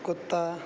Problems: none marked